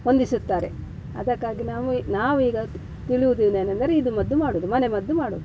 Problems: background sounds at intervals